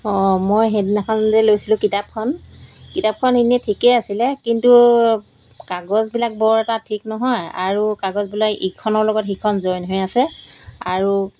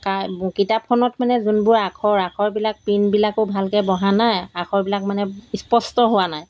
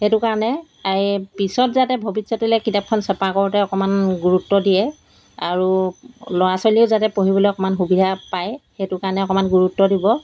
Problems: none marked